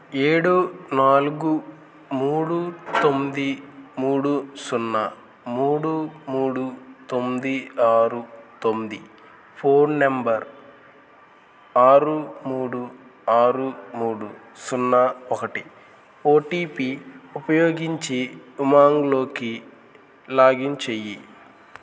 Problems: constant background noise